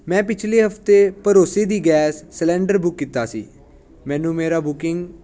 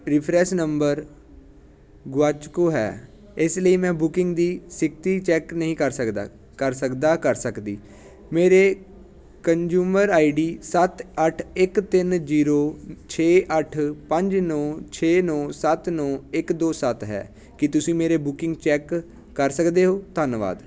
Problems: constant background noise